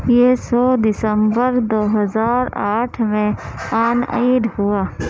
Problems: constant background noise